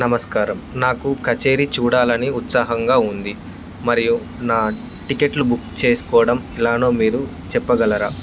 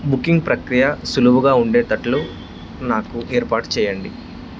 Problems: constant background noise